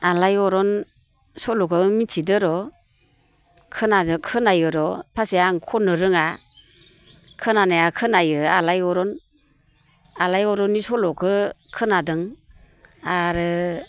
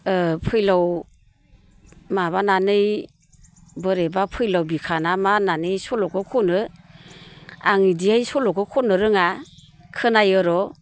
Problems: constant background noise